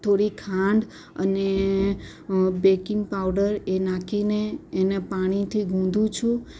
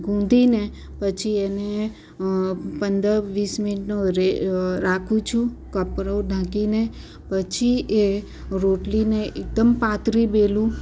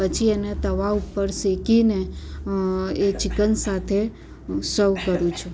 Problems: none marked